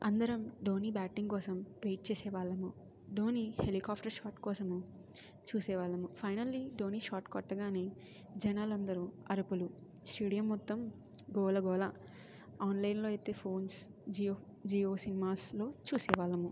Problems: low volume